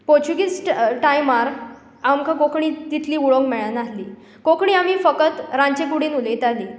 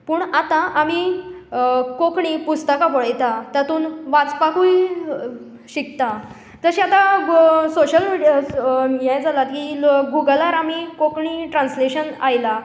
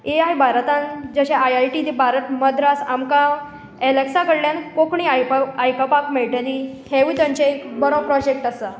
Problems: background sounds at intervals